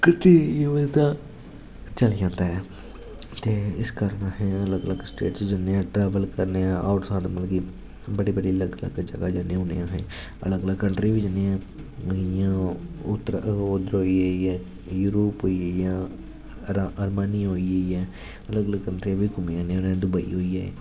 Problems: constant background noise